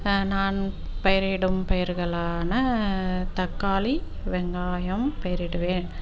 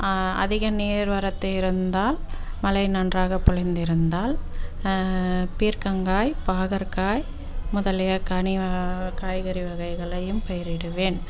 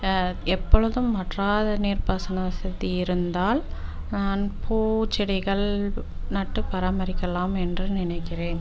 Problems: constant background noise